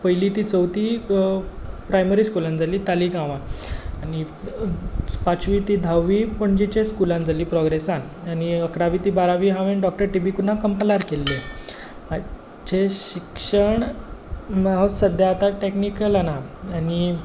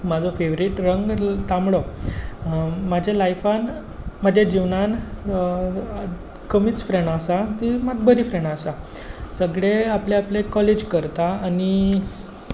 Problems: constant background noise